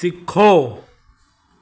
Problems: constant background noise, echo